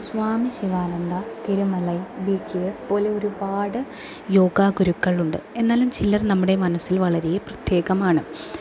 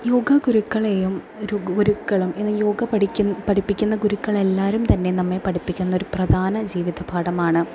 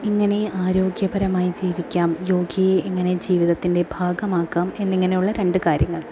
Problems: low volume